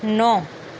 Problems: none marked